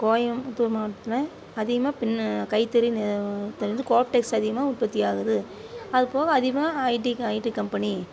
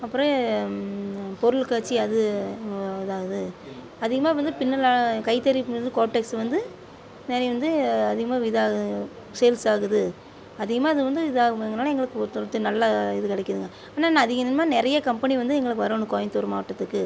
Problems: constant background noise